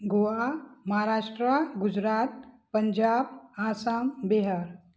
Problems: none marked